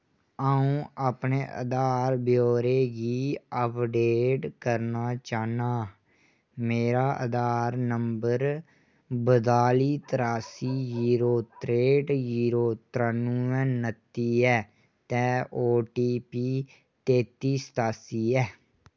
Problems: none marked